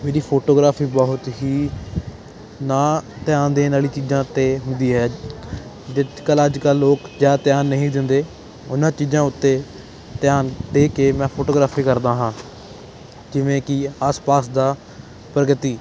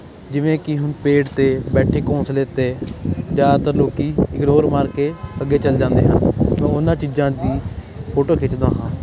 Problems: constant background noise